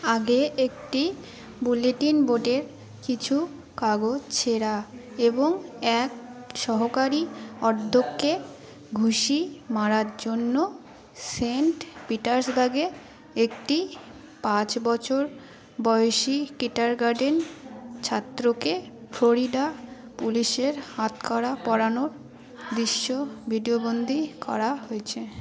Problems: continuous background conversations